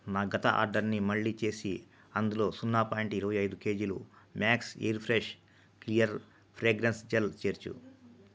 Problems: low volume